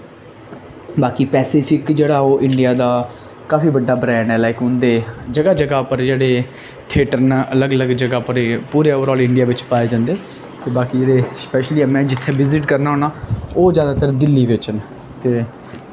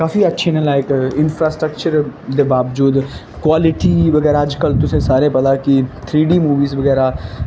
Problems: constant background noise